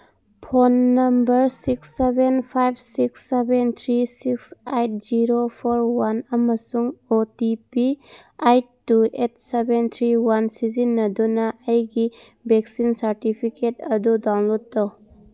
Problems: background sounds at intervals